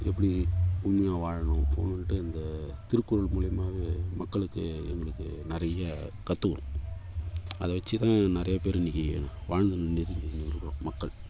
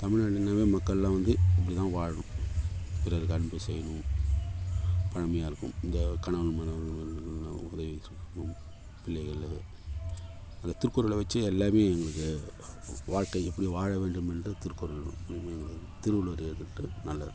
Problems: constant background noise, low volume